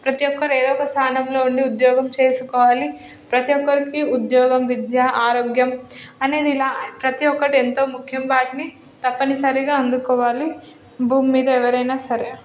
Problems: none marked